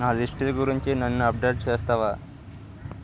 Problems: constant background noise